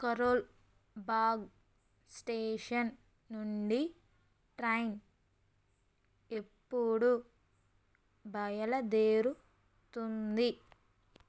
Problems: constant background noise